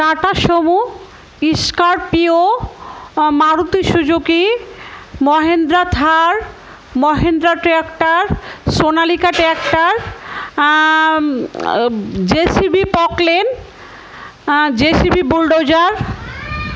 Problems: constant background noise, background conversations at intervals